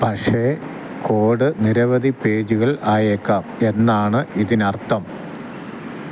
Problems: constant background noise